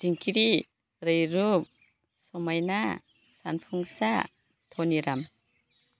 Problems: none marked